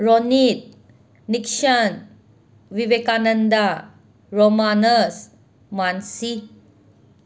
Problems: constant background noise